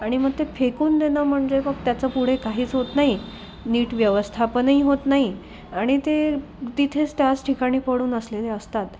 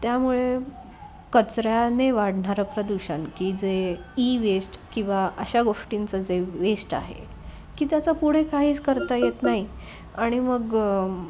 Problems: constant background noise, background conversations at intervals, low volume